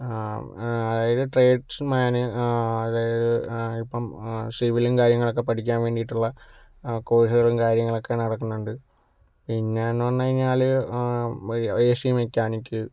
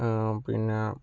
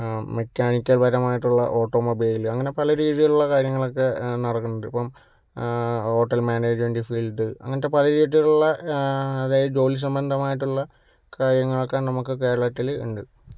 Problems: none marked